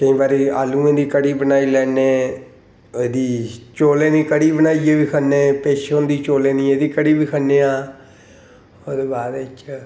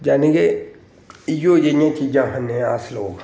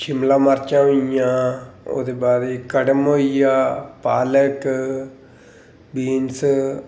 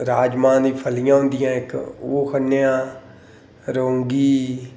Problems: none marked